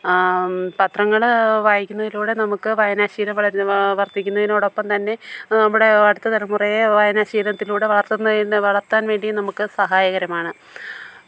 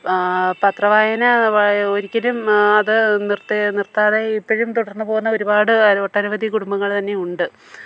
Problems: low volume